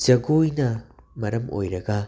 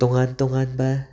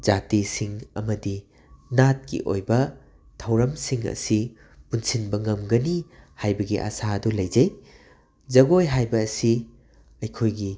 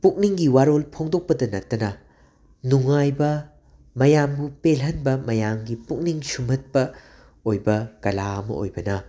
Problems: constant background noise